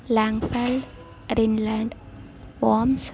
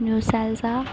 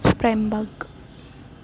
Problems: constant background noise